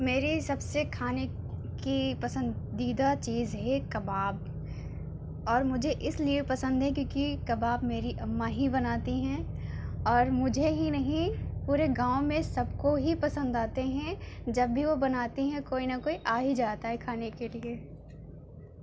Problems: constant background noise